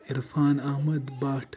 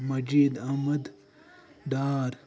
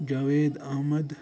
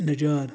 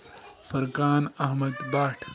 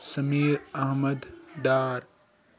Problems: background sounds at intervals, background conversations at intervals